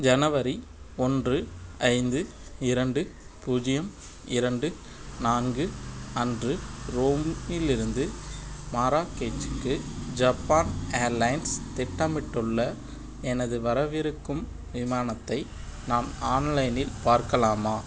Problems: constant background noise